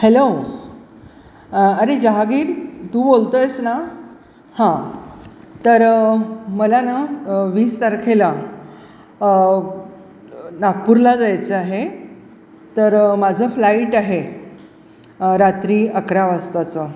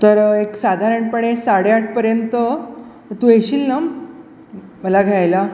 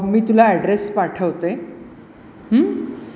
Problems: none marked